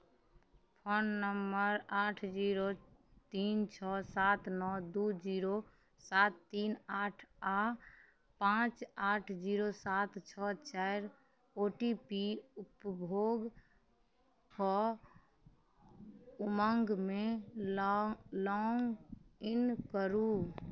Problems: none marked